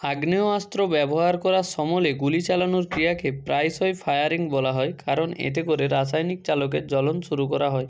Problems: constant background noise